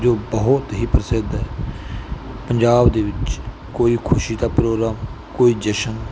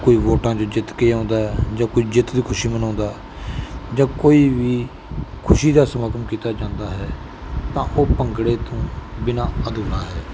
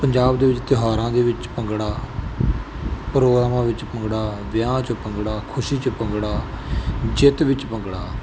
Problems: none marked